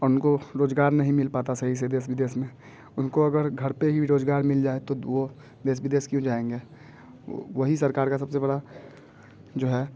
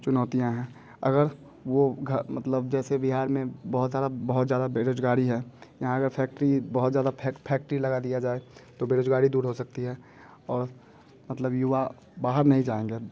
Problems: constant background noise